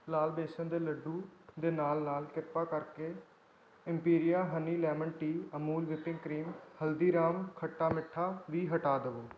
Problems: background sounds at intervals